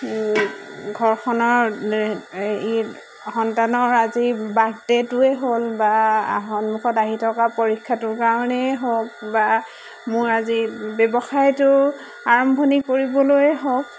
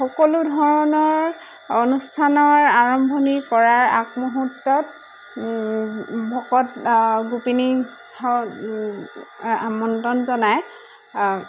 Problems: none marked